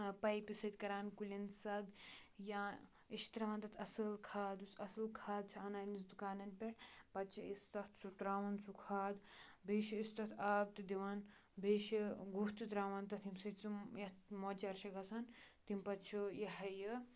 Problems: background sounds at intervals